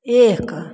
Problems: none marked